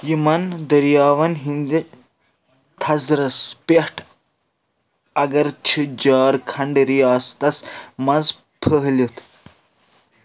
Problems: none marked